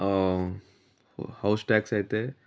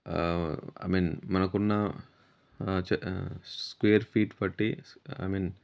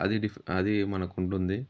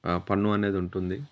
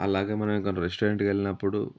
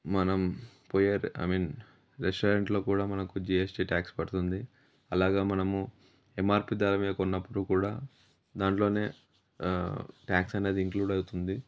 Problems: none marked